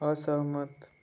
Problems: background sounds at intervals